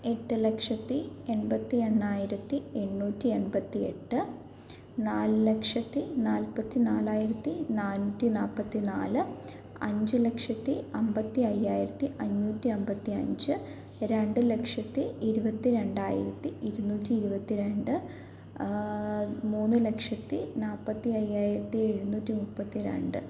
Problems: background sounds at intervals, low volume